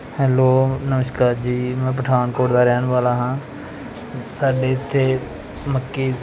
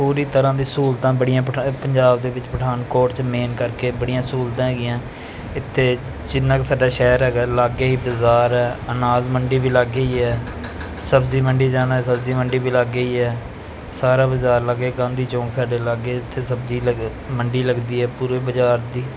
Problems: constant background noise